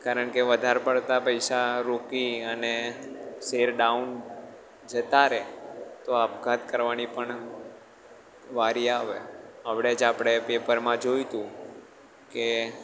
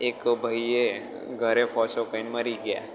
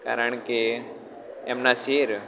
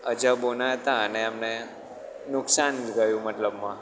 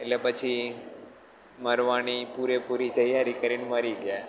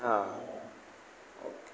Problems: background sounds at intervals